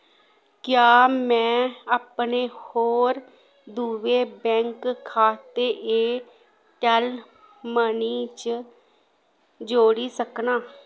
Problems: background sounds at intervals